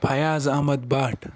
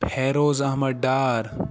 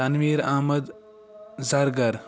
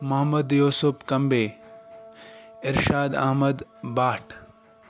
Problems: background conversations at intervals